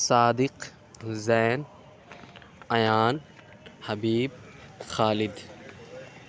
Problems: none marked